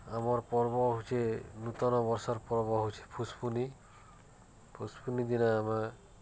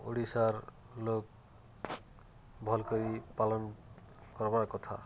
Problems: none marked